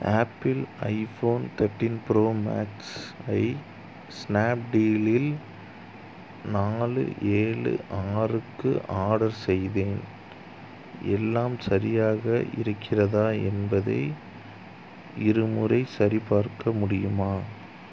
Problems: constant background noise